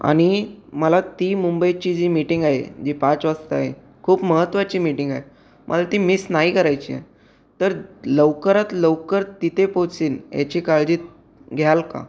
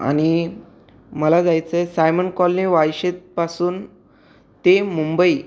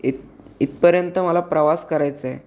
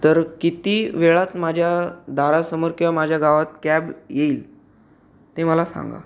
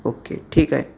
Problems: background sounds at intervals